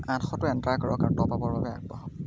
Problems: constant background noise